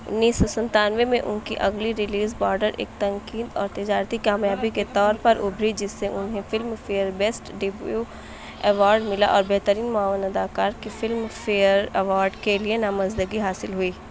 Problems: background sounds at intervals